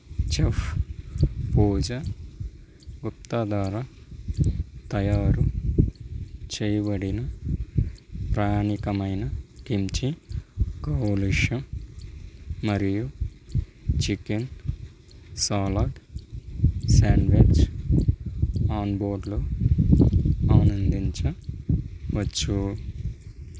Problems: constant background noise